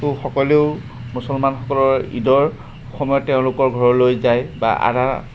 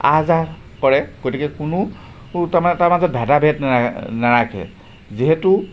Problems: constant background noise